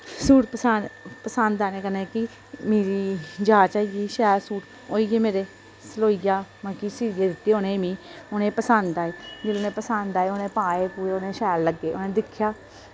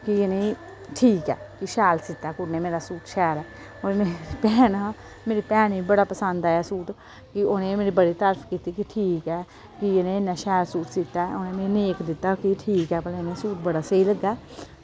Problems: background sounds at intervals